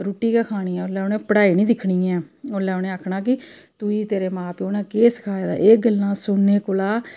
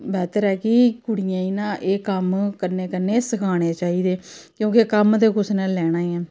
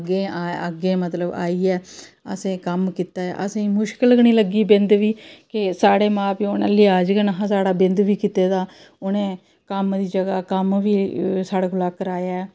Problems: none marked